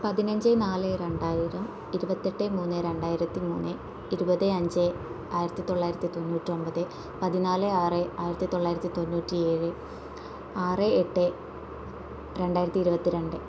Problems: none marked